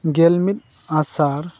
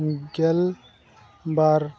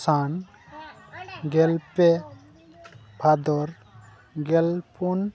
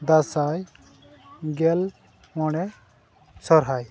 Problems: constant background noise, background conversations at intervals